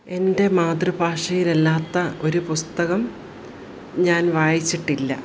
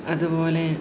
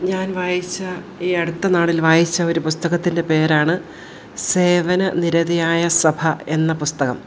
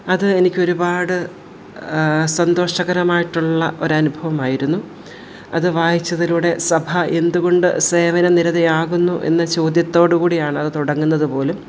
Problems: none marked